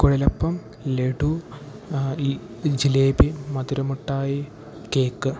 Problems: background sounds at intervals